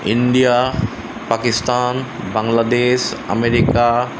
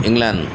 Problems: constant background noise